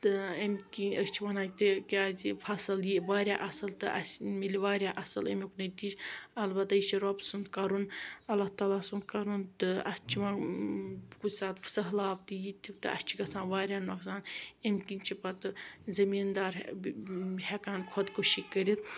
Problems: background sounds at intervals